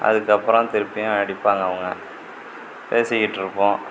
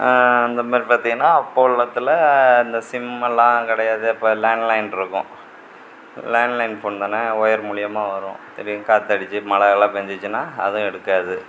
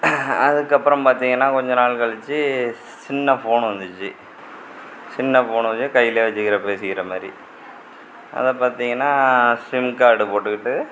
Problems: constant background noise